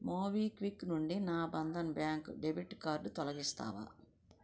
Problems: low volume